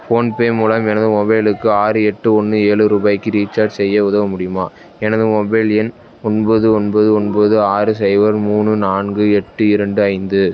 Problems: background sounds at intervals, background conversations at intervals